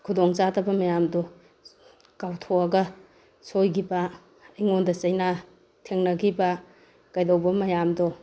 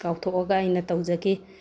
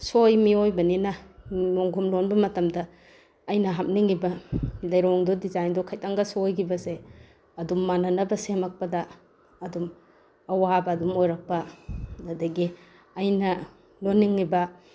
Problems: background sounds at intervals